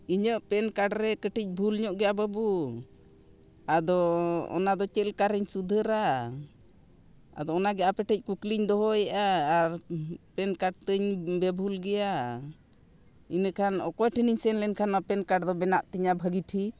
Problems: background sounds at intervals